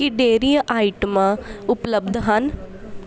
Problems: background conversations at intervals